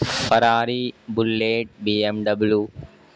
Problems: constant background noise